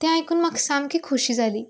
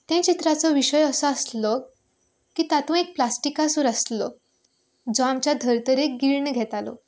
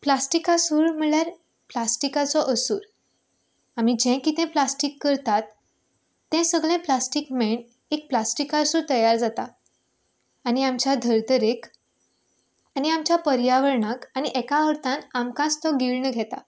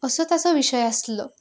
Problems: none marked